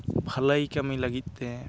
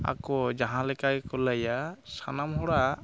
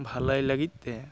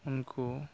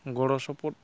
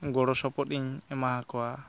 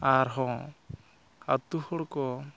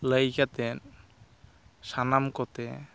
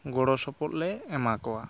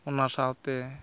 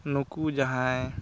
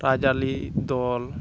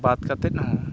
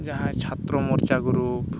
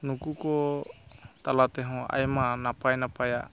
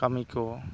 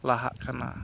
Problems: background sounds at intervals